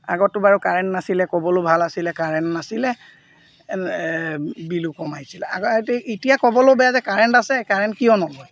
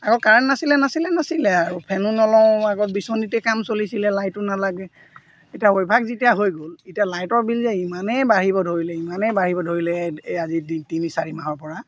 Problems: none marked